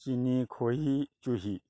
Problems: none marked